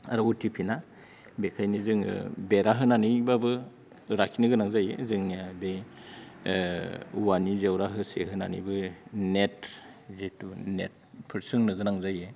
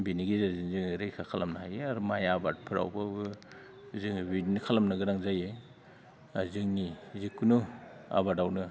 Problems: low volume